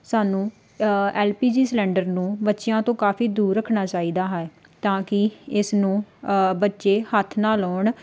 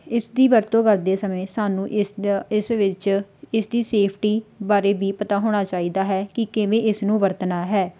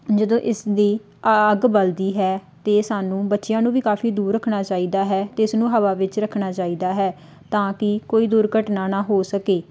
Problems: background sounds at intervals